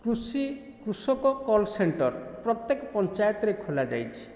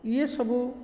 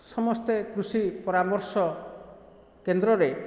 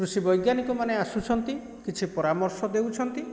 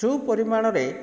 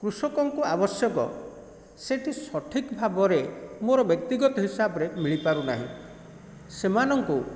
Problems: constant background noise